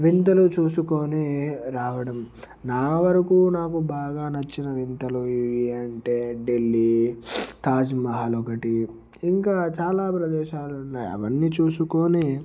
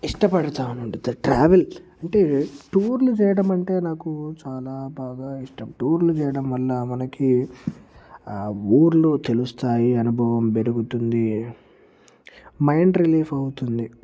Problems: background sounds at intervals